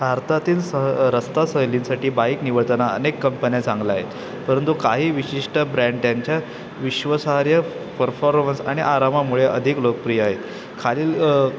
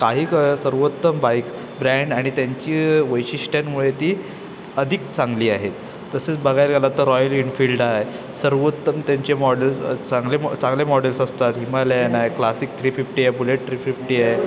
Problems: constant background noise, continuous background conversations